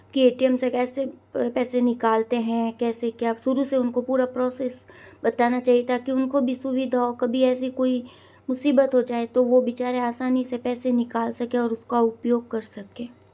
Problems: none marked